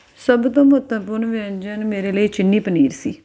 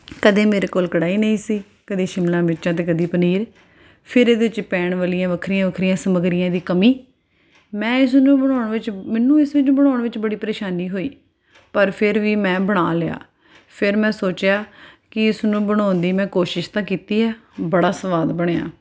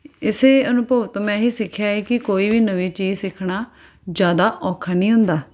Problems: background sounds at intervals